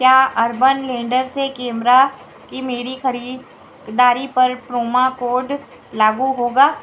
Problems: constant background noise